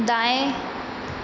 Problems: constant background noise